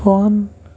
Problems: constant background noise